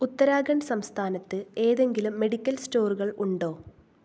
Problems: low volume